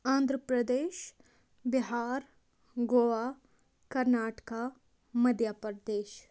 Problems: none marked